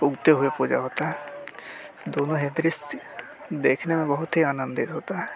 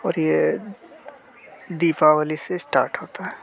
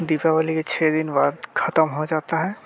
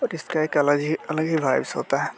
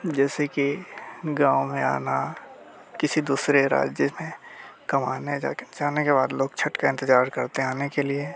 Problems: none marked